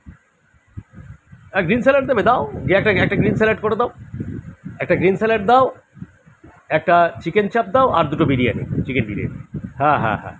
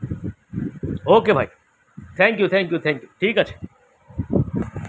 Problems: none marked